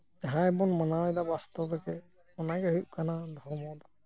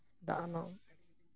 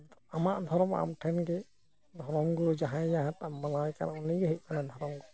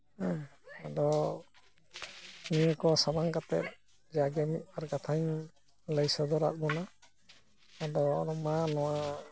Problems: low volume